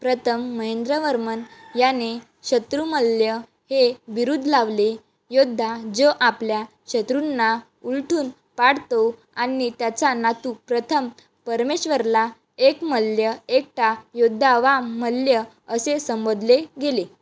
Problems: background sounds at intervals